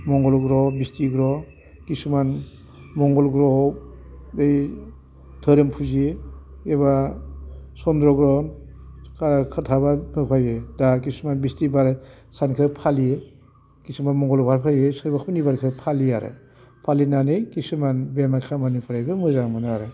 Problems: constant background noise